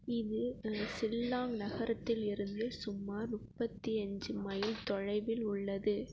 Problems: constant background noise